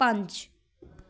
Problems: background conversations at intervals